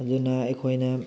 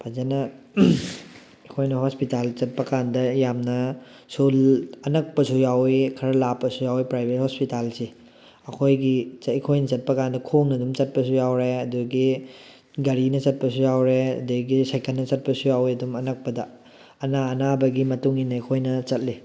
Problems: background sounds at intervals